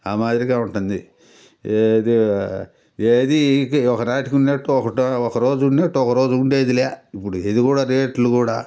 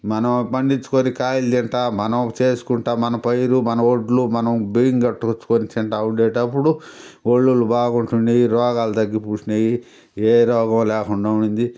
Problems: constant background noise